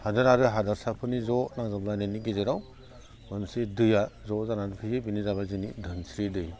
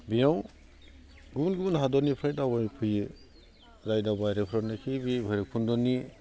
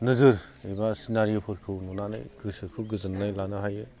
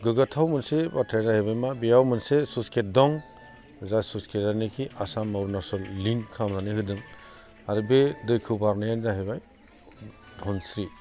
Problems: constant background noise